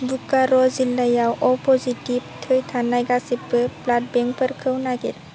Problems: constant background noise